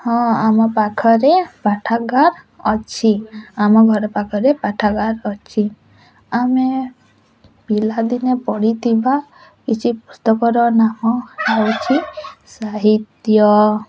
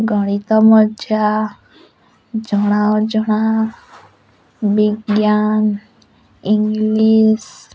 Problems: constant background noise